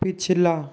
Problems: constant background noise